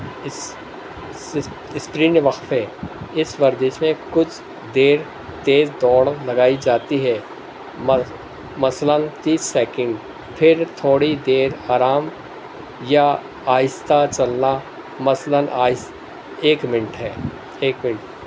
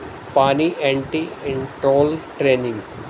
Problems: constant background noise